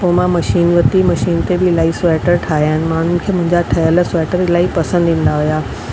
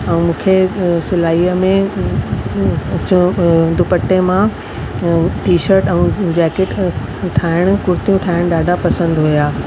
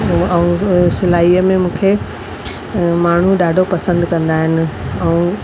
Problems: constant background noise, echo